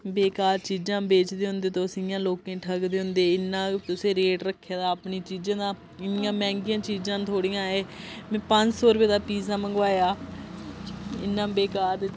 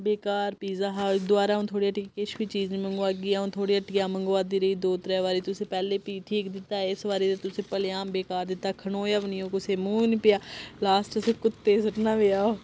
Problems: none marked